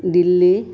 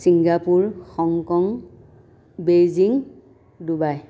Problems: background sounds at intervals, background conversations at intervals